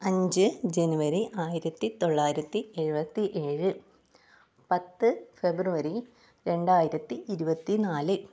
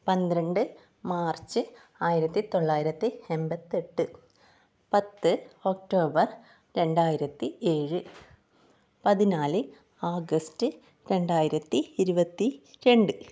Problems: low volume